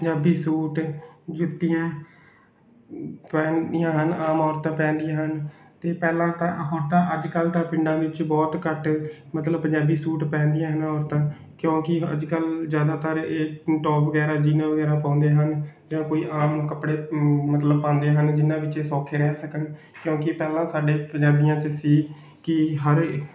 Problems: none marked